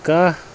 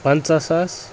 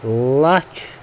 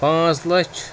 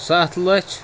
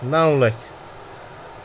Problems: constant background noise